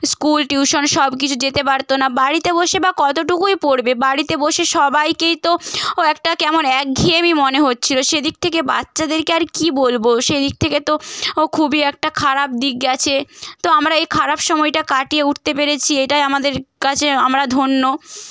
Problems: none marked